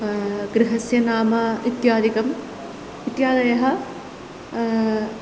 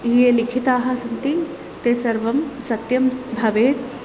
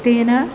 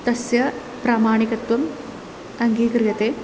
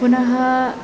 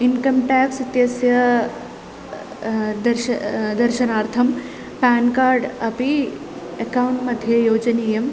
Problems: constant background noise